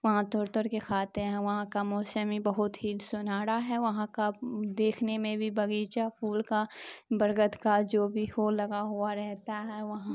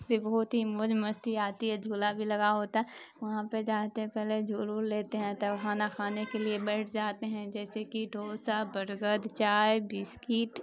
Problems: constant background noise